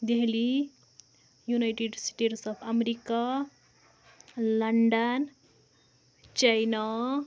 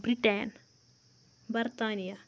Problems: background sounds at intervals